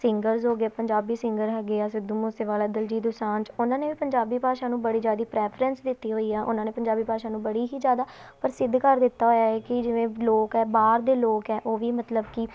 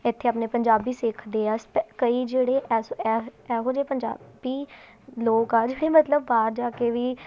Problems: continuous background conversations